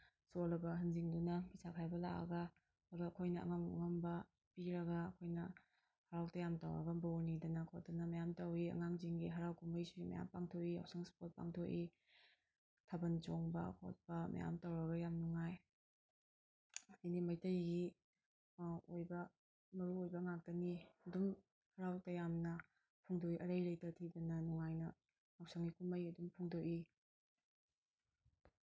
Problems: background sounds at intervals